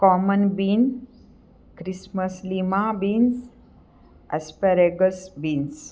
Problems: none marked